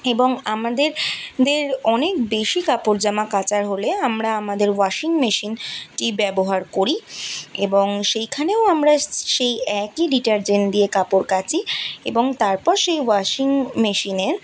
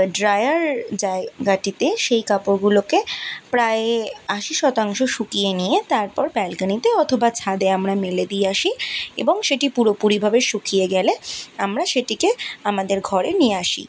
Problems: constant background noise